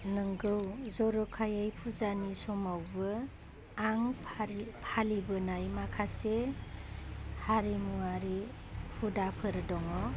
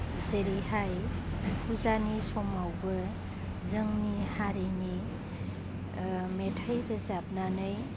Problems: constant background noise